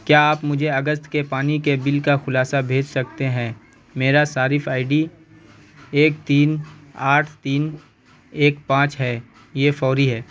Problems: constant background noise